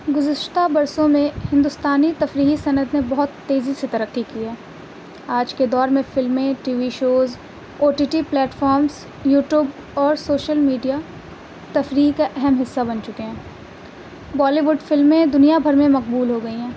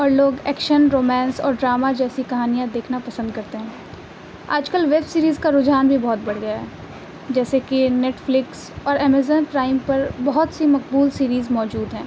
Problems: constant background noise